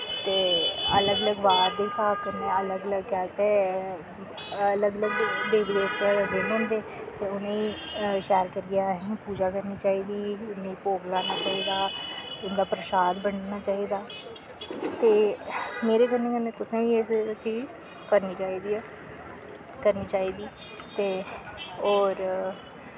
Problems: constant background noise